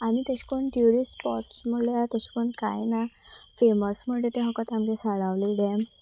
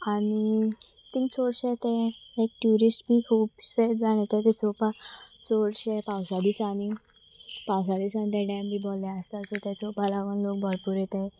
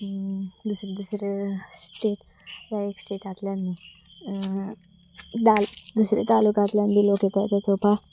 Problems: constant background noise